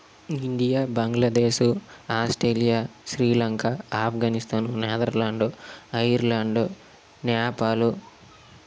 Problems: constant background noise